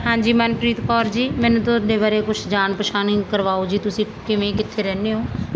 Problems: constant background noise